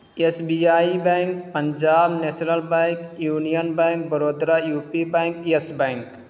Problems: constant background noise